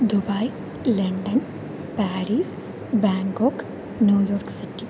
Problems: constant background noise, low volume